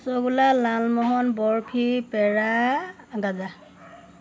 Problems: none marked